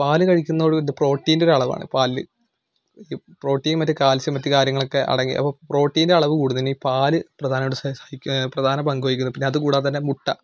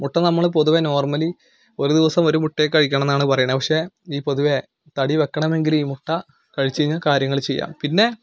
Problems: none marked